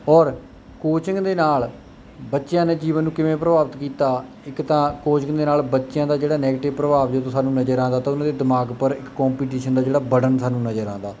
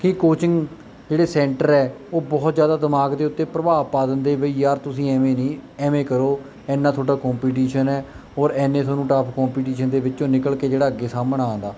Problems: none marked